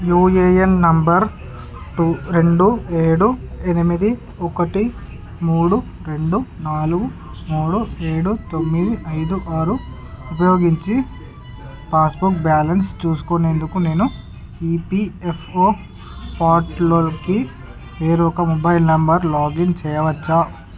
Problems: constant background noise